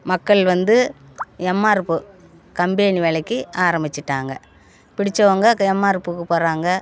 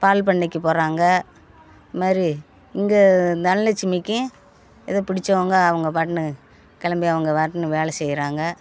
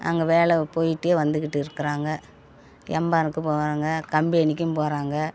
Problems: none marked